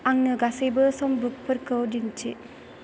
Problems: constant background noise